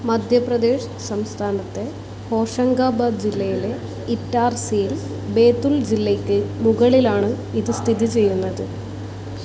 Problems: constant background noise